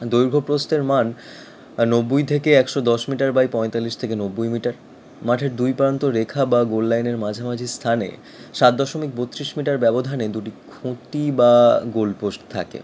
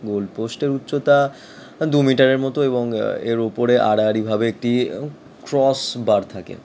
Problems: constant background noise